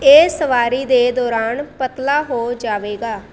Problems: constant background noise